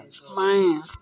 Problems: constant background noise, low volume